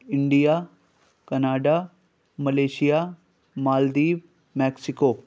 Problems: constant background noise